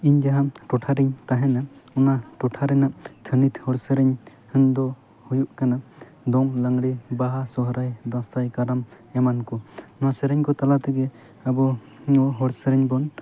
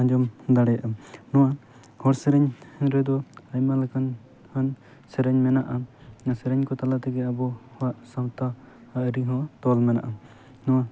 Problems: background sounds at intervals